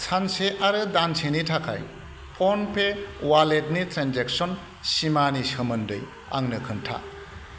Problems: constant background noise